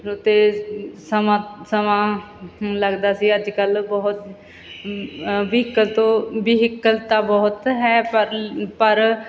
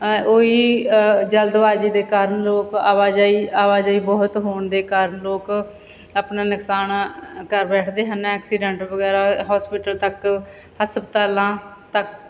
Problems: none marked